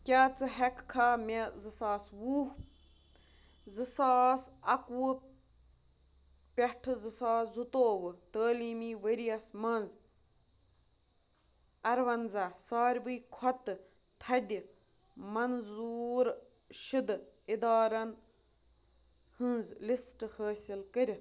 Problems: constant background noise